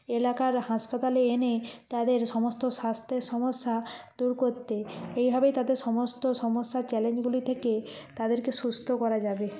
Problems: constant background noise, background conversations at intervals